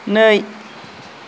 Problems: constant background noise